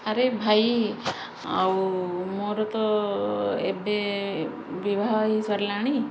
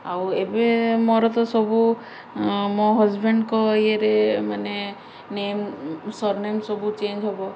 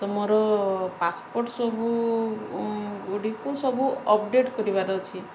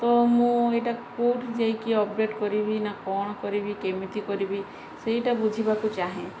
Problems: none marked